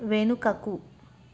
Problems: constant background noise